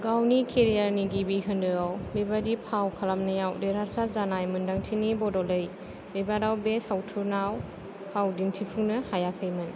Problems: low volume